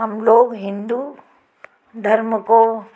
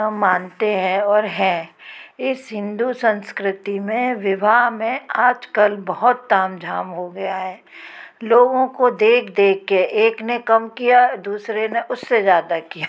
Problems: constant background noise